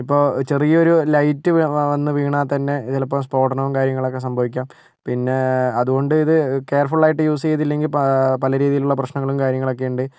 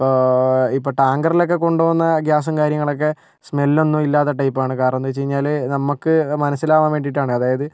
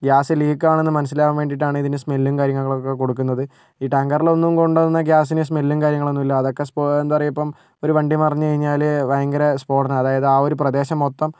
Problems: none marked